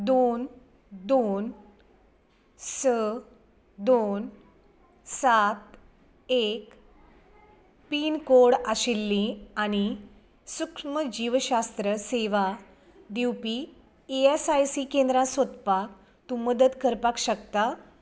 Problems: background sounds at intervals